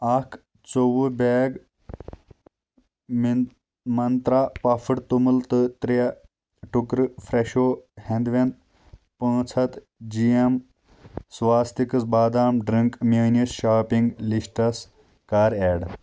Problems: none marked